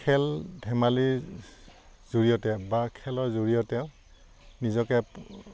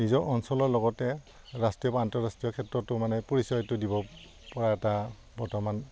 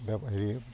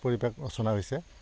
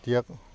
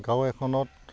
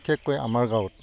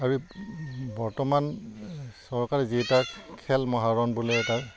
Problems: background sounds at intervals